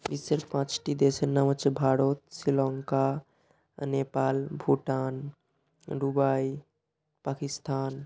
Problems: none marked